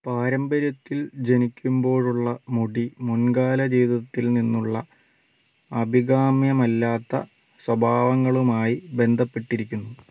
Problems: background sounds at intervals